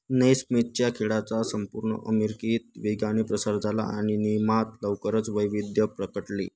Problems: constant background noise